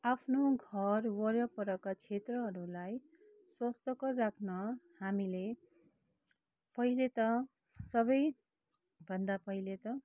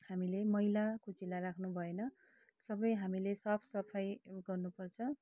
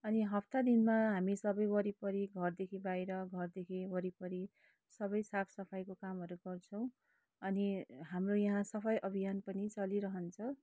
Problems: low volume